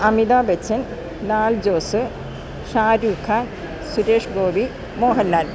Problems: none marked